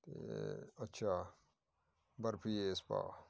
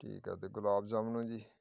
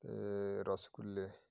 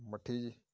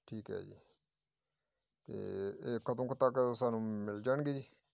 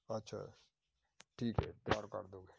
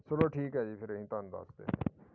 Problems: background sounds at intervals